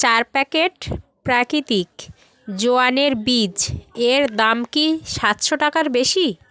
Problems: background conversations at intervals